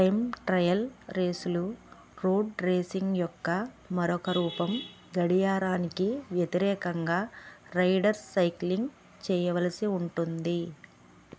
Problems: background sounds at intervals